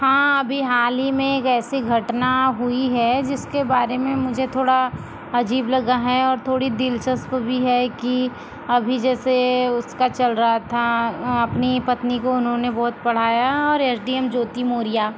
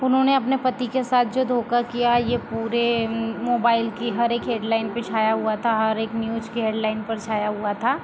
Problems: constant background noise